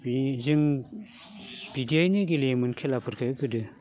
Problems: constant background noise